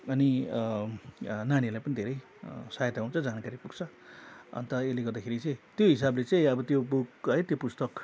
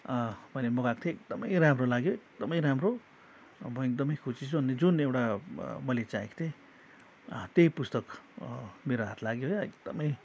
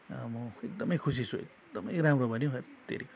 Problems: constant background noise